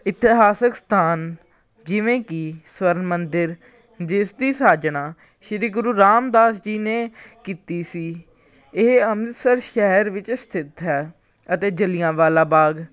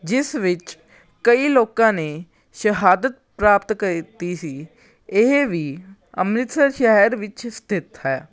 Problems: none marked